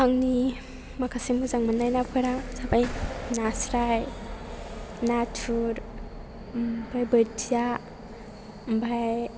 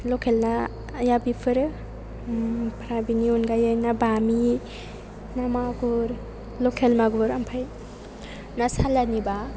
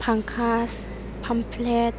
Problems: background sounds at intervals